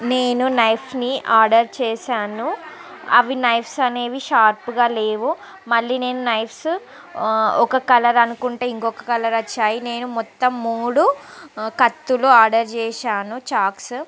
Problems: constant background noise, background conversations at intervals